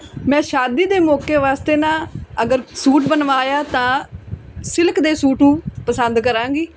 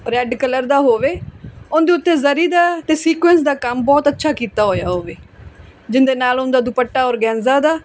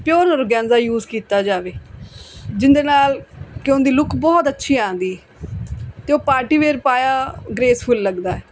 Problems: background conversations at intervals